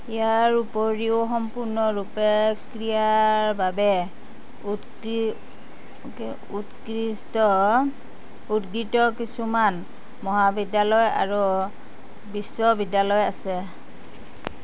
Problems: constant background noise